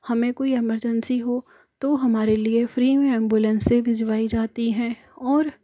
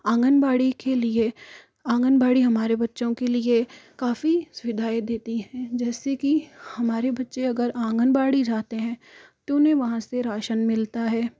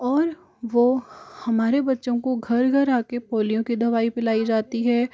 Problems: none marked